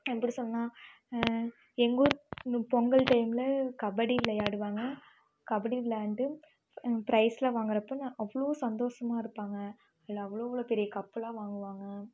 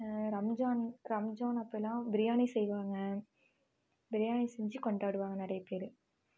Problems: background sounds at intervals